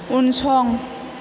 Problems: constant background noise